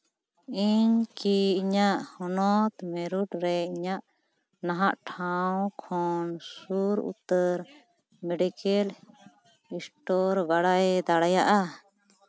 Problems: none marked